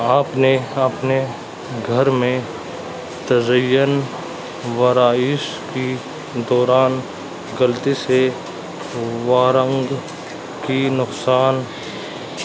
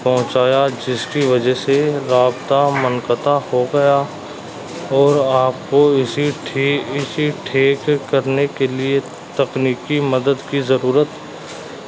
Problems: constant background noise